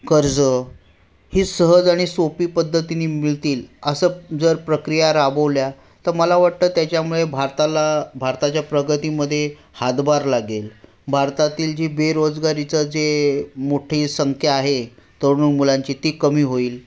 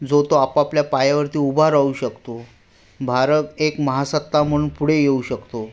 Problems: background sounds at intervals